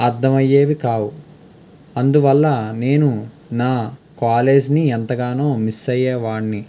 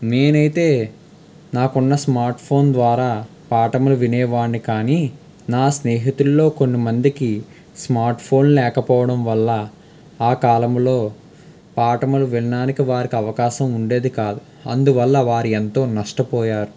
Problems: constant background noise